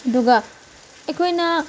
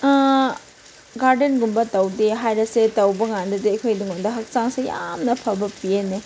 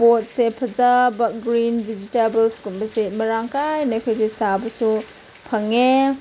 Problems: background sounds at intervals